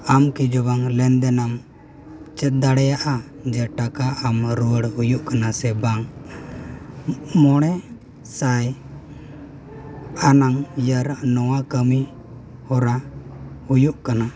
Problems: background conversations at intervals